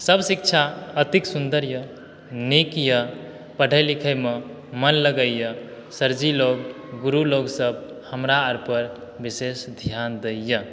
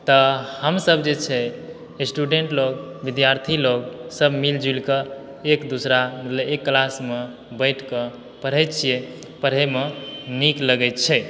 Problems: background sounds at intervals